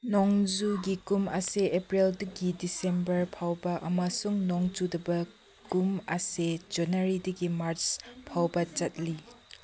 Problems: background sounds at intervals